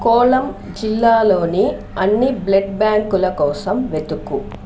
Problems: constant background noise, background conversations at intervals